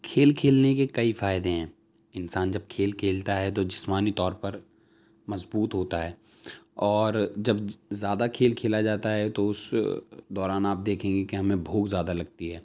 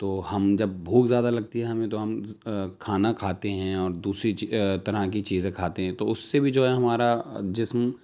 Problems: none marked